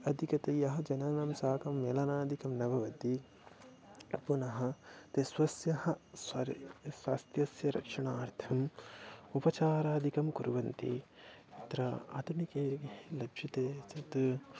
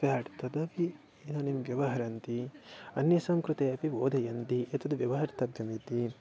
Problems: low volume